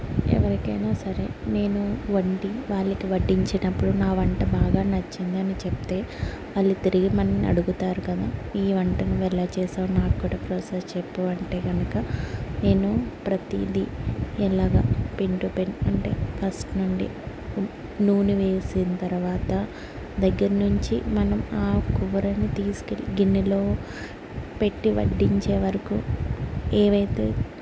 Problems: constant background noise